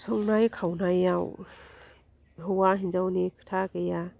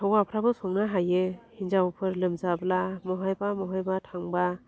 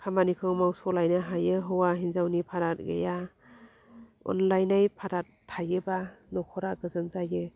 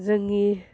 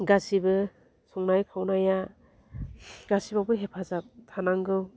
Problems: low volume